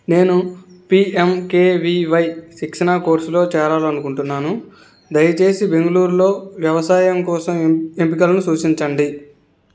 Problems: background sounds at intervals